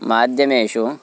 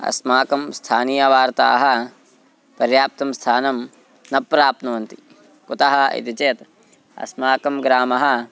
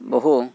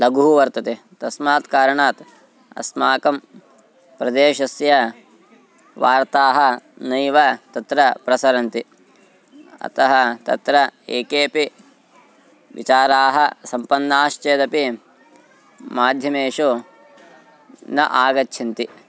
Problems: constant background noise, continuous background conversations